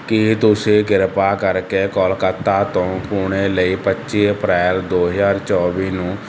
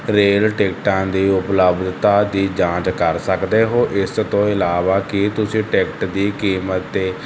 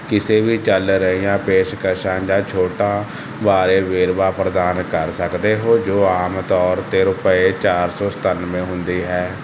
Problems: constant background noise